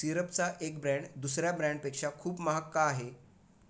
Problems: constant background noise